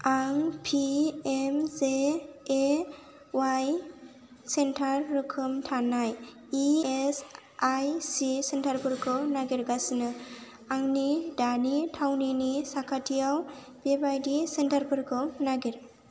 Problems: low volume